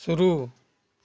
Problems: none marked